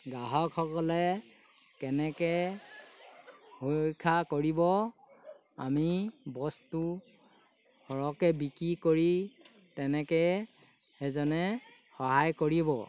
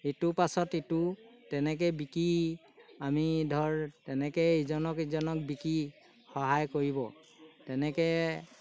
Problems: background sounds at intervals